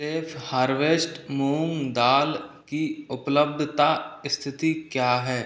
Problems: none marked